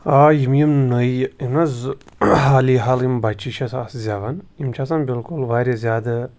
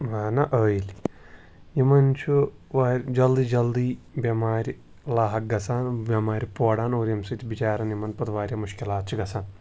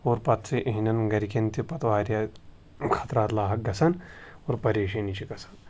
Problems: background sounds at intervals